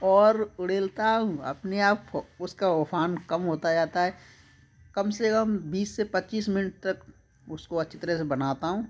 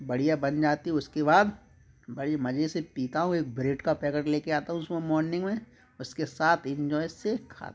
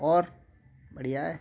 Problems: constant background noise, background conversations at intervals